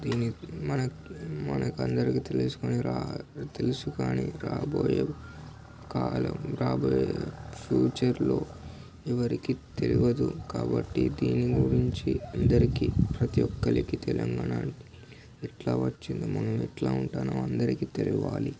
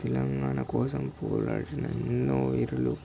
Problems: constant background noise